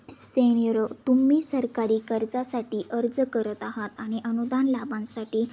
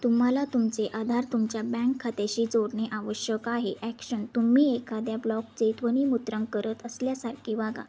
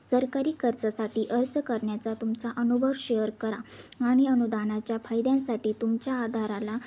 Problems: constant background noise, background conversations at intervals